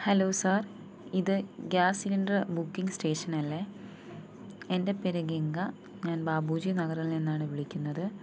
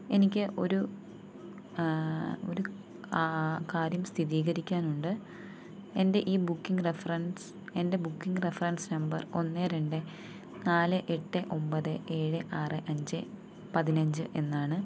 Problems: low volume